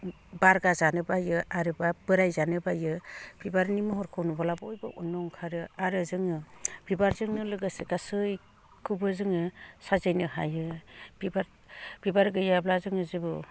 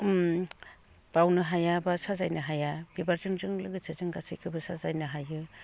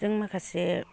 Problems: low volume